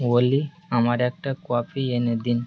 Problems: constant background noise